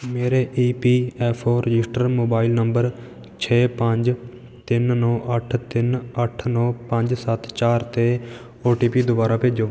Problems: none marked